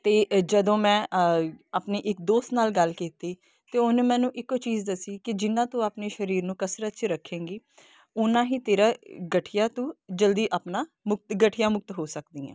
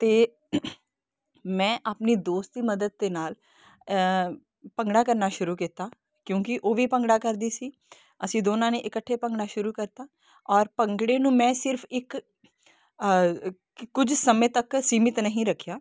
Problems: none marked